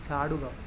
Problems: constant background noise